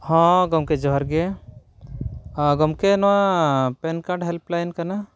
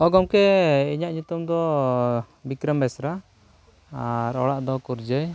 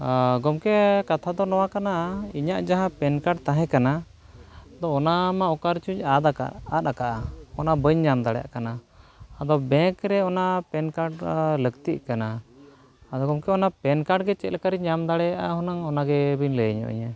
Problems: none marked